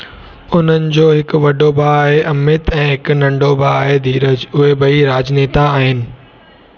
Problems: constant background noise